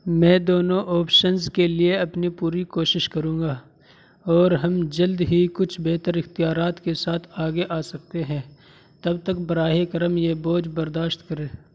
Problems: constant background noise